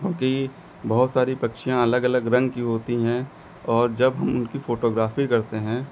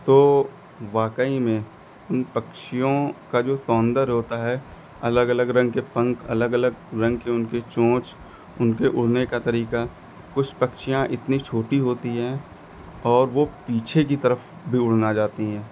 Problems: none marked